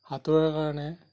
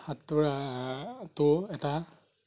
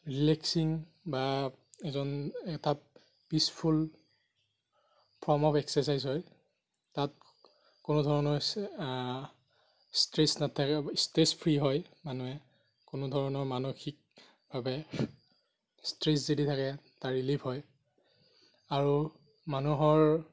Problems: none marked